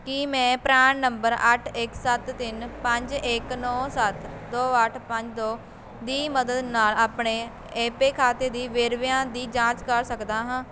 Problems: constant background noise